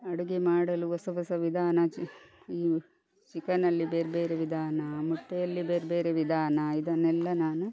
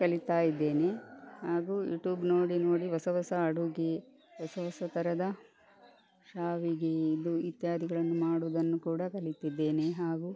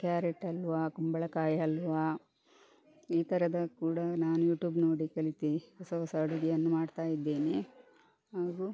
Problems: none marked